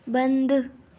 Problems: constant background noise